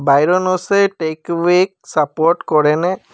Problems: none marked